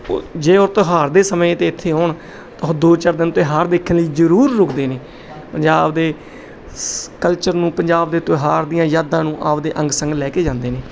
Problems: background sounds at intervals